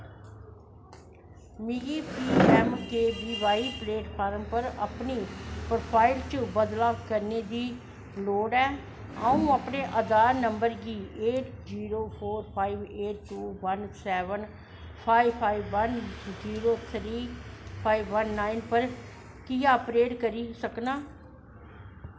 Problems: constant background noise, echo